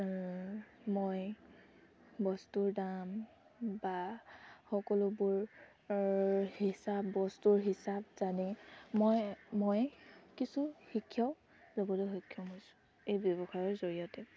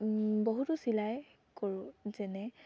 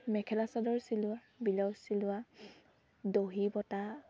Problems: none marked